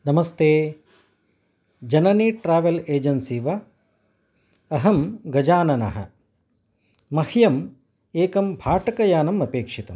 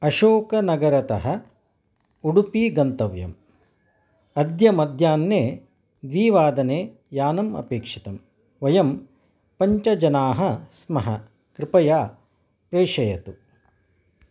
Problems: none marked